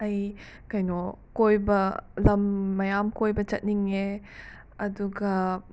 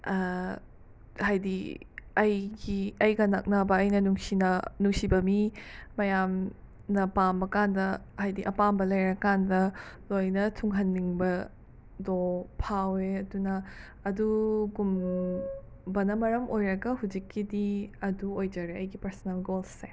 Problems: background sounds at intervals